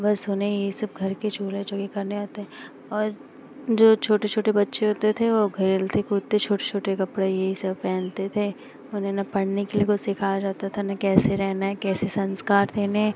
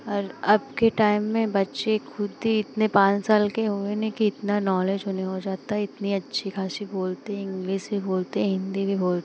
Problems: constant background noise